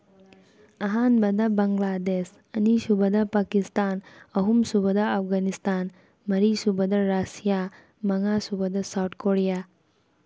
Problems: none marked